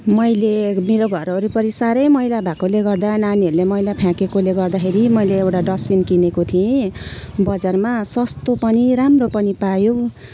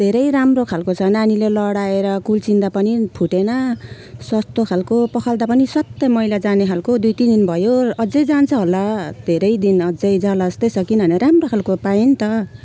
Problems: constant background noise